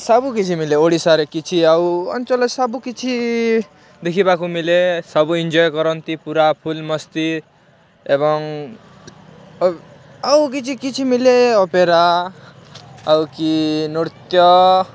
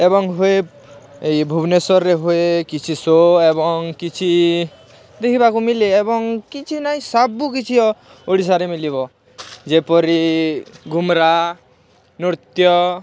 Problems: none marked